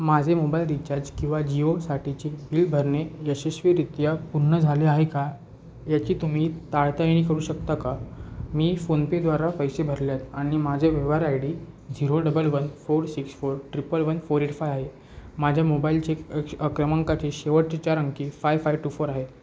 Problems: background sounds at intervals